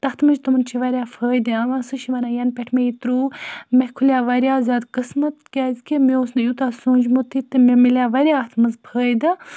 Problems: background sounds at intervals